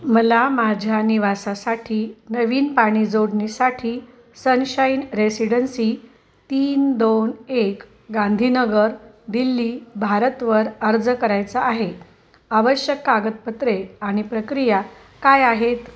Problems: constant background noise, background conversations at intervals